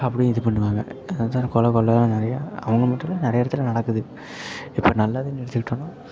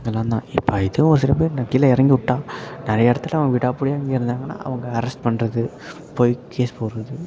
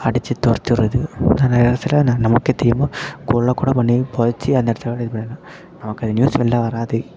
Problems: constant background noise, background conversations at intervals, low volume